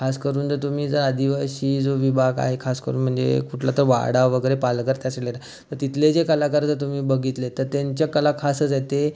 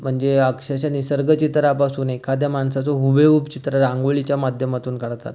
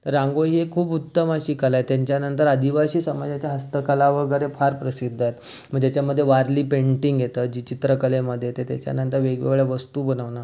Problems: constant background noise, background conversations at intervals